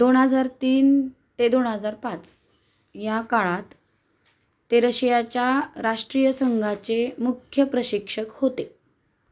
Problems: constant background noise